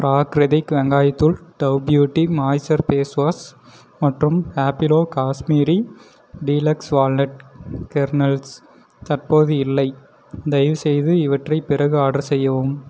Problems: none marked